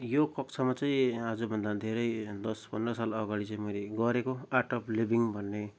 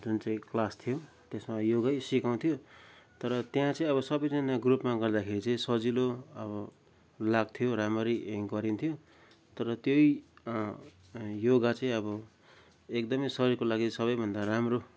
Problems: none marked